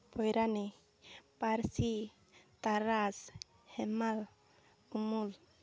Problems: none marked